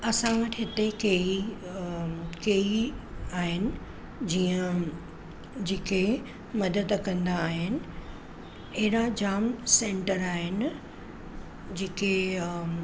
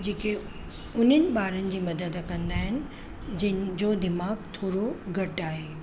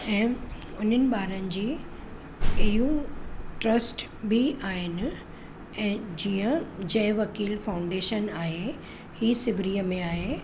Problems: constant background noise